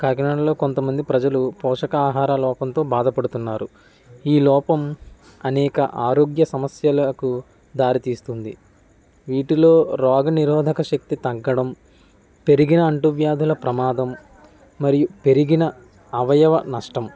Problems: background conversations at intervals